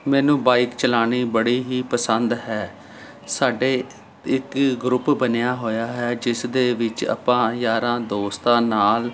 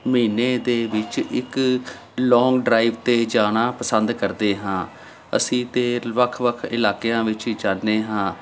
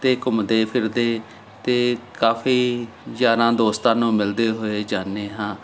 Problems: none marked